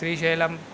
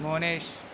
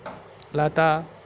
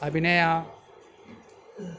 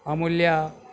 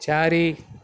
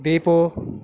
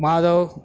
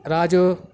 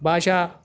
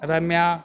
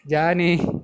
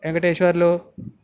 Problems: none marked